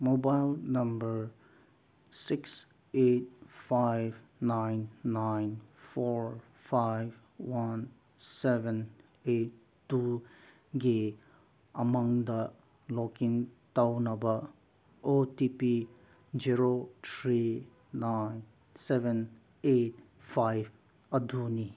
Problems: none marked